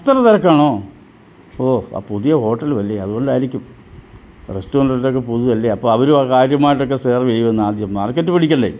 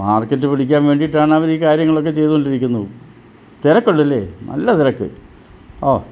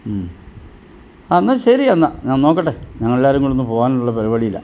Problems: low volume